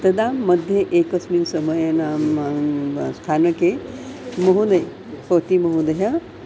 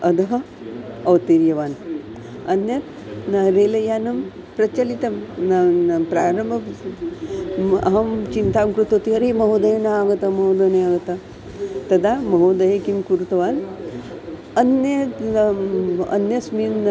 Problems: constant background noise